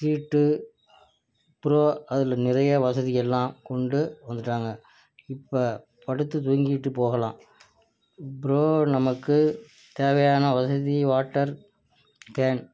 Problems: low volume